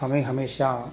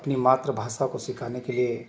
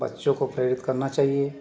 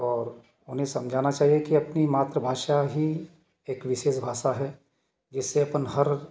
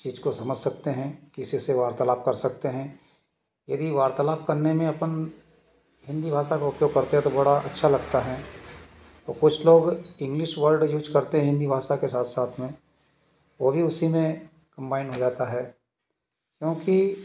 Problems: background sounds at intervals